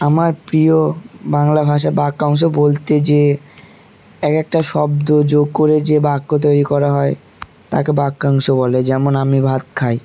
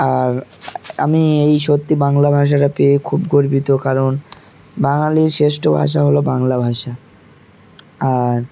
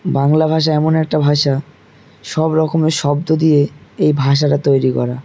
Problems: constant background noise, background conversations at intervals